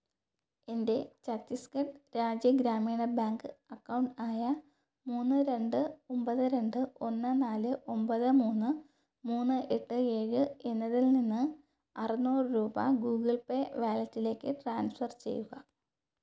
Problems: low volume